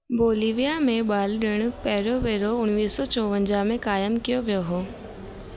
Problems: constant background noise